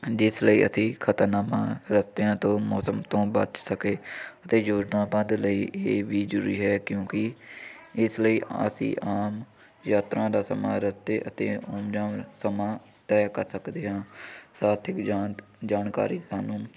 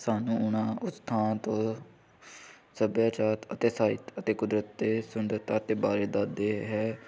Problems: background sounds at intervals